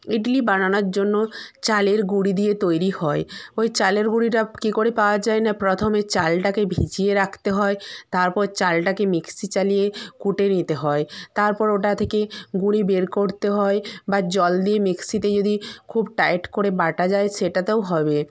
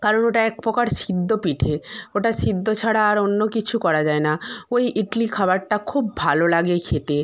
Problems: constant background noise